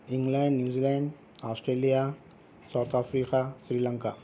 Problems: constant background noise